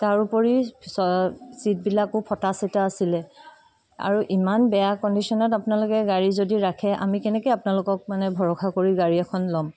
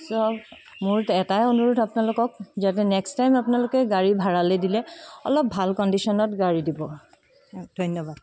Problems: background sounds at intervals